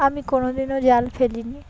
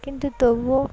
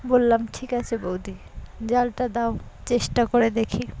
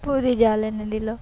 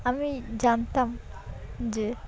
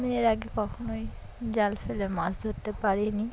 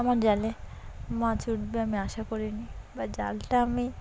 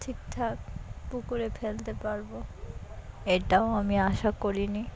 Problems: background sounds at intervals, continuous background conversations